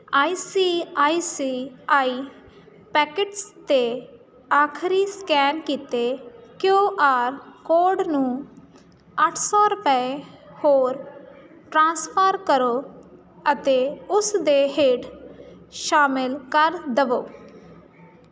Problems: constant background noise